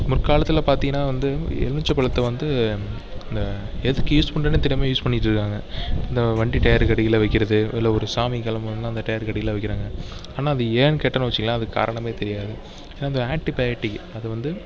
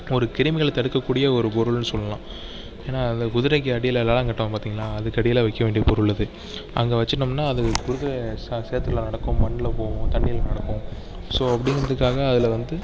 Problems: background conversations at intervals